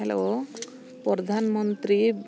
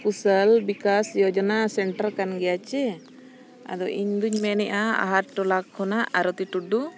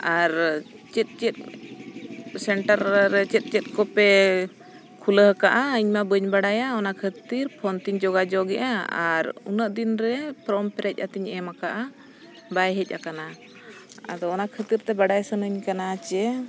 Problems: constant background noise